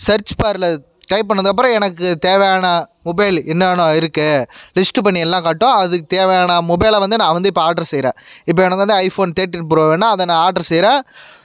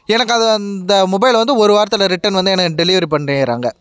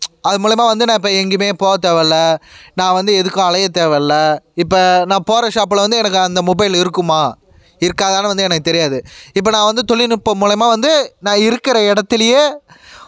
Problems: none marked